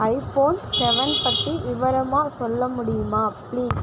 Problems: background sounds at intervals